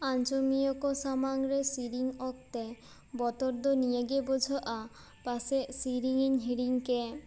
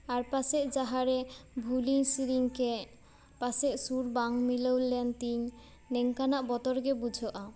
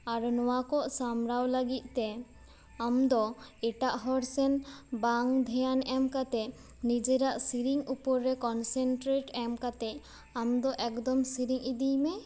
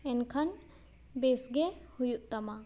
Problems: background sounds at intervals